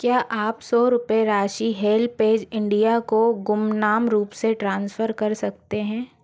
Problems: none marked